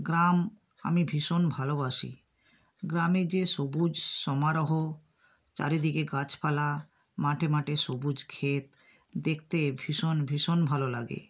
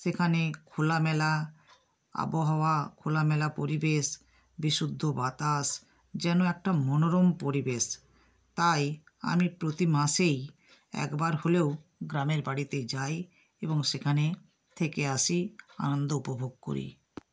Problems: none marked